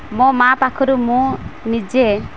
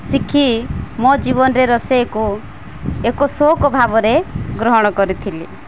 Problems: constant background noise